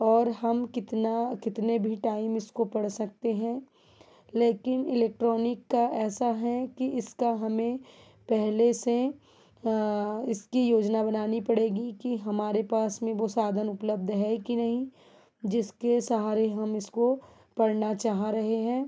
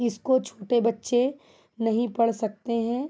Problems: background sounds at intervals